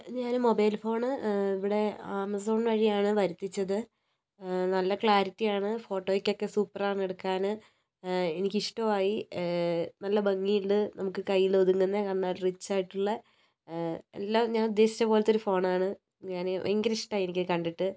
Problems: low volume